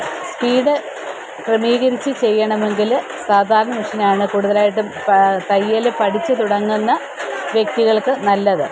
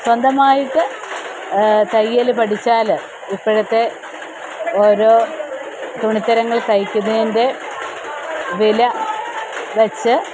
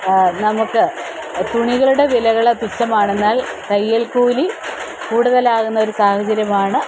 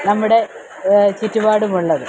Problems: constant background noise